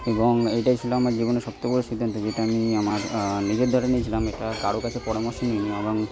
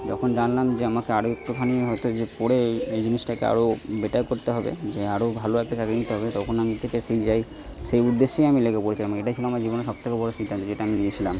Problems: background sounds at intervals, background conversations at intervals